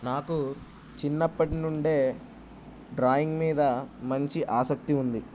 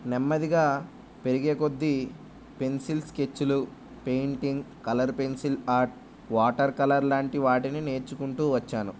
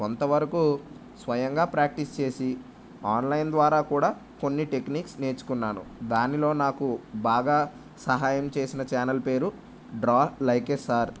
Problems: none marked